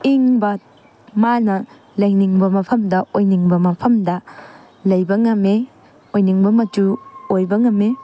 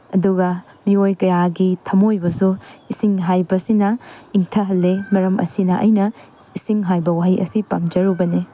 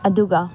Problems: none marked